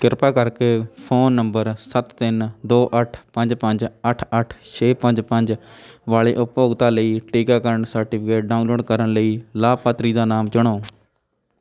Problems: background sounds at intervals, background conversations at intervals